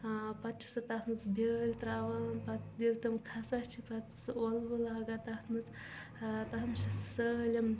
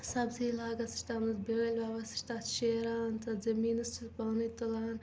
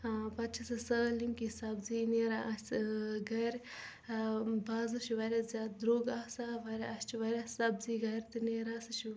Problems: constant background noise, background conversations at intervals